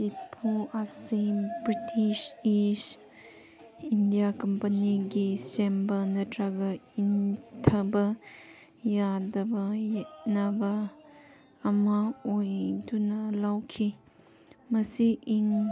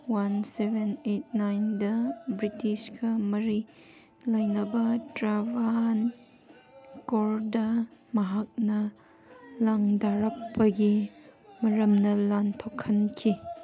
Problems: background sounds at intervals